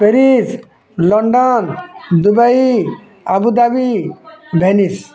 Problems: constant background noise